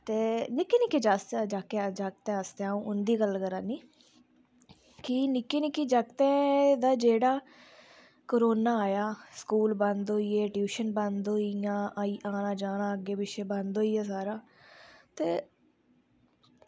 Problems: low volume